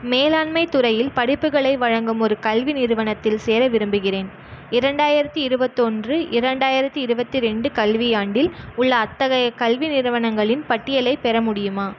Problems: none marked